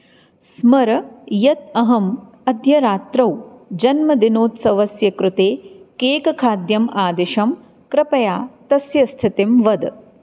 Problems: none marked